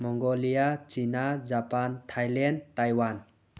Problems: none marked